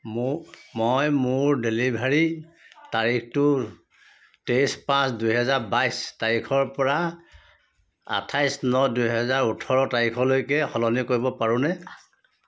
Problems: background conversations at intervals